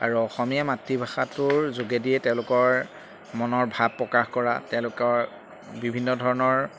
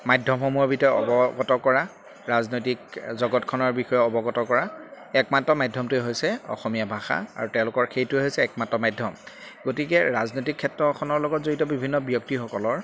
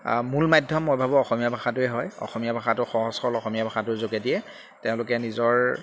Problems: constant background noise